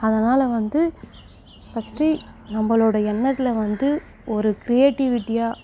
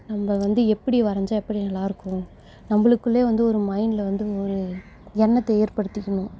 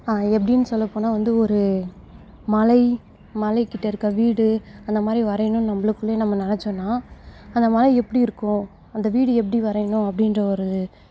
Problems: none marked